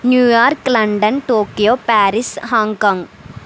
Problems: constant background noise